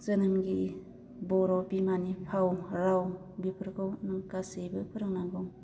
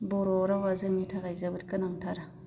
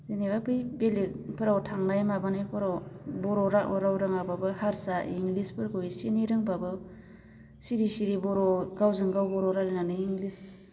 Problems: constant background noise